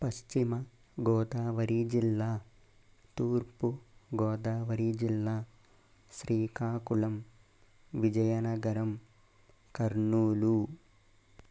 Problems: constant background noise, low volume